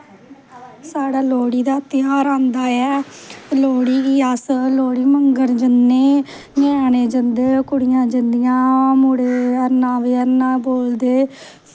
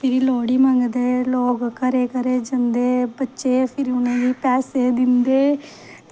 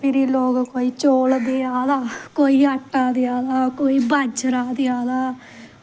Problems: none marked